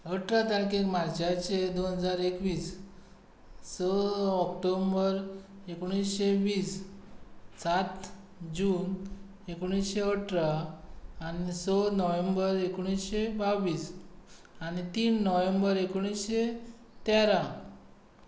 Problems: constant background noise